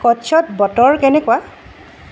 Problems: background sounds at intervals